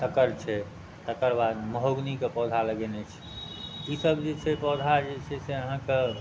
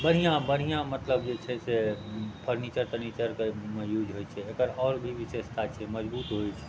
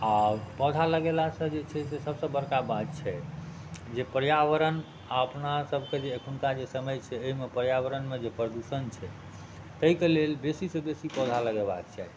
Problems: none marked